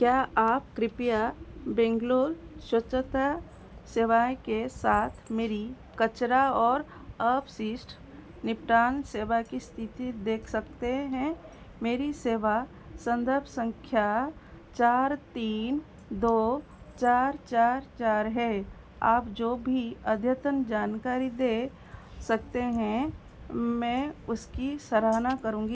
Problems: constant background noise